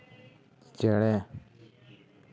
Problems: none marked